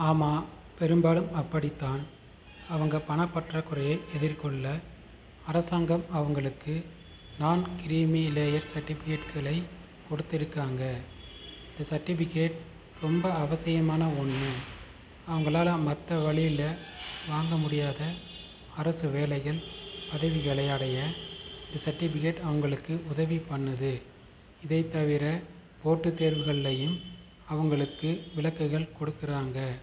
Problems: constant background noise